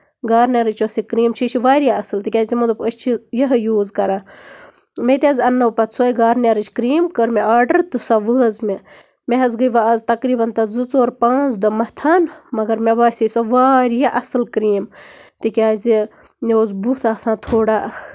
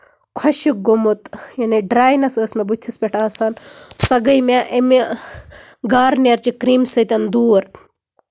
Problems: none marked